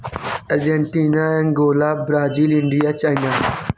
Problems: constant background noise